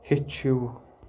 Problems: background sounds at intervals